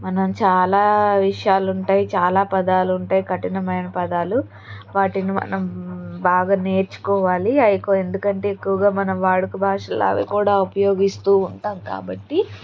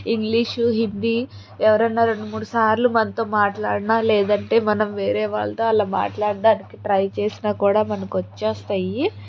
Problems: constant background noise, background conversations at intervals